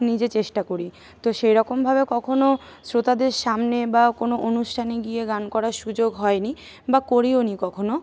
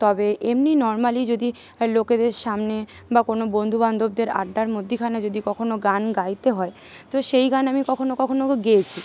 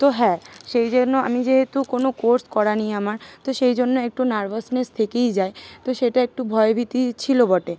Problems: none marked